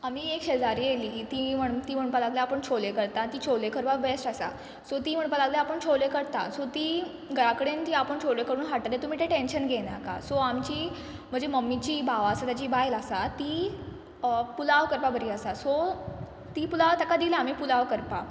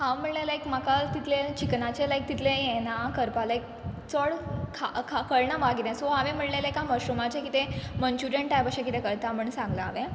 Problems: background sounds at intervals